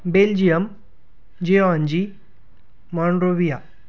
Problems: constant background noise